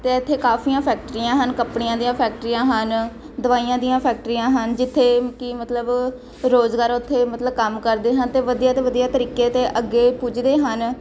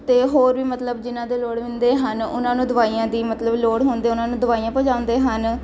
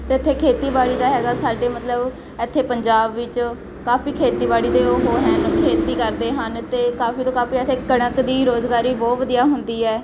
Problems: constant background noise